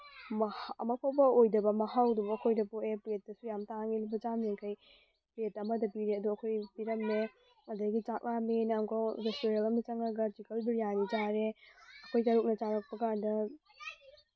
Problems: none marked